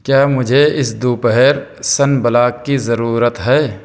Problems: background sounds at intervals